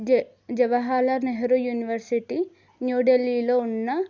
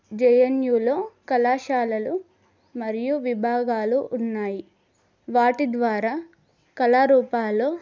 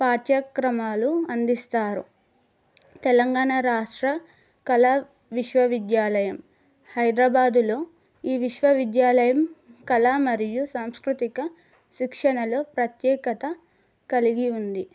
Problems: none marked